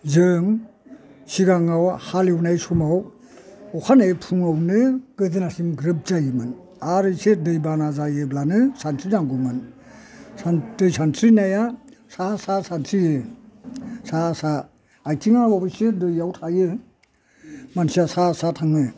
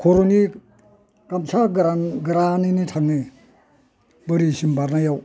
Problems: low volume